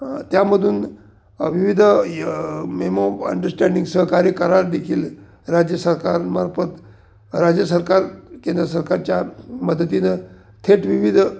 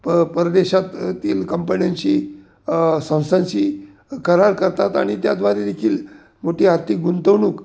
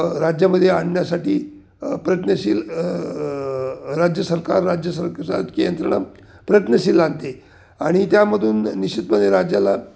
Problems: none marked